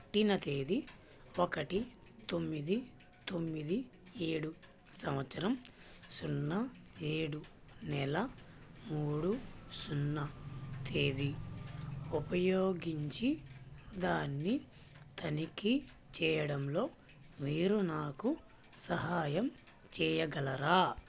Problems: constant background noise